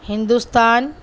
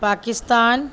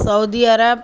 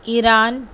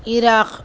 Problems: none marked